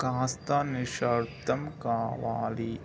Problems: low volume